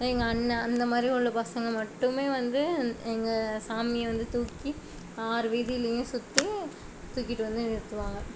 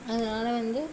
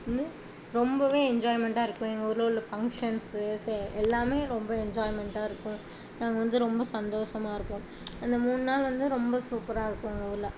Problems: none marked